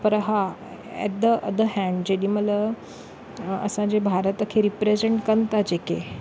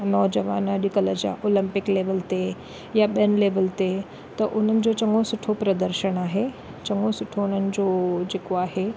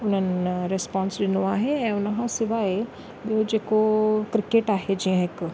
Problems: none marked